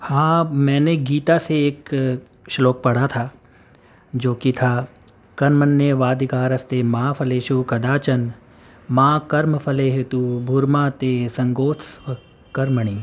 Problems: constant background noise